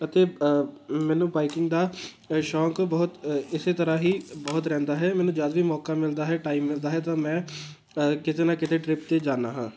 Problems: constant background noise